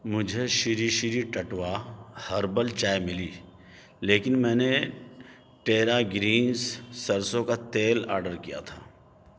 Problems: background sounds at intervals